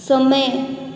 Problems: none marked